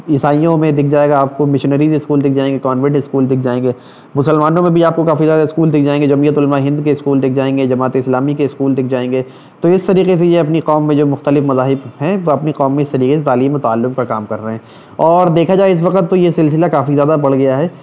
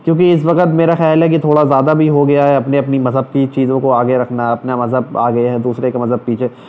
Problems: none marked